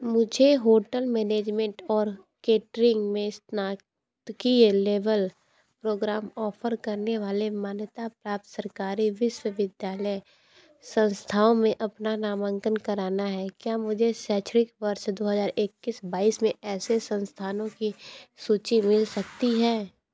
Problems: background sounds at intervals